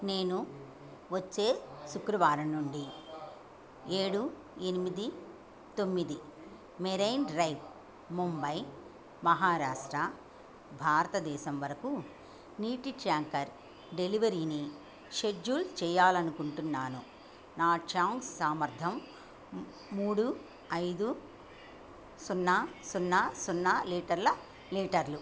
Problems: background sounds at intervals